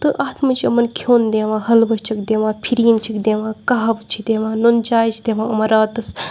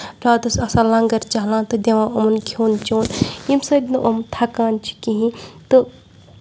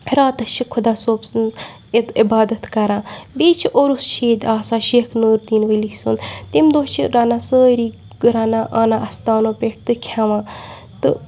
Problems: background sounds at intervals, background conversations at intervals